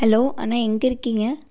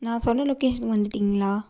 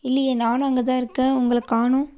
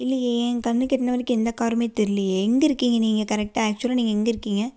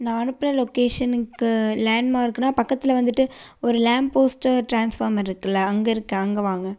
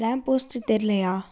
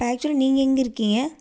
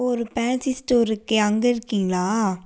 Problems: none marked